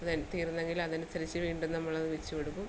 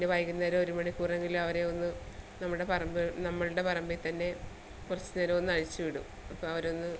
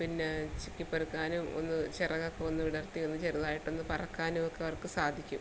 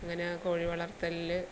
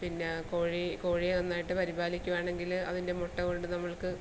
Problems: low volume